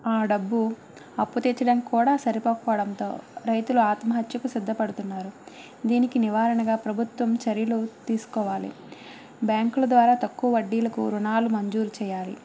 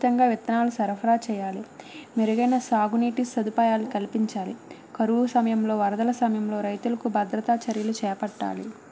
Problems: none marked